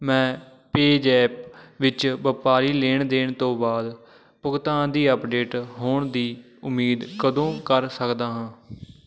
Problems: background sounds at intervals